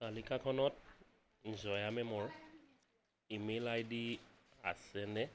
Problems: constant background noise